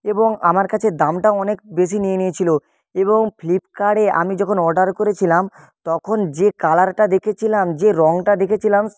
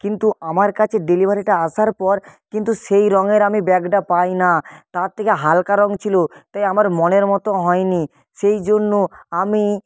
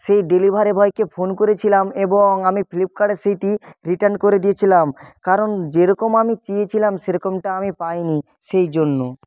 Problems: background sounds at intervals